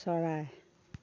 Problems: none marked